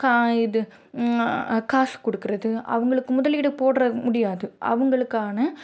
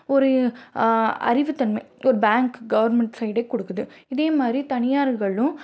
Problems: none marked